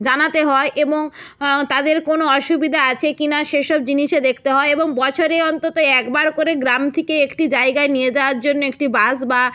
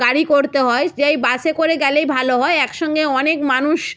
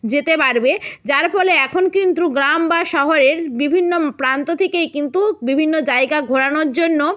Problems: none marked